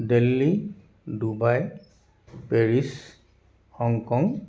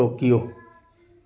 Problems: constant background noise, background conversations at intervals